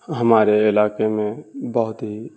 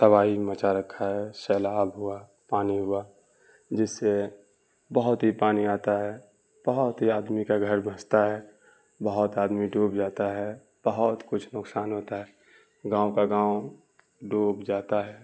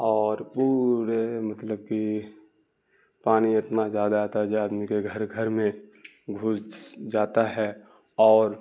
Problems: constant background noise